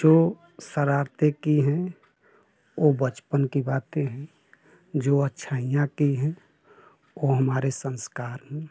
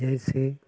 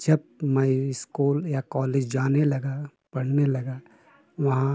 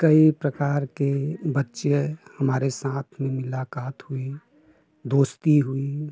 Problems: constant background noise